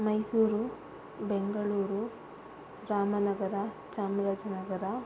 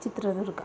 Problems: constant background noise